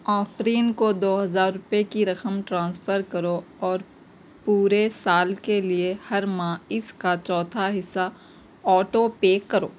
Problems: constant background noise